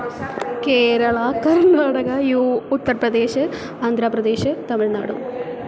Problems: constant background noise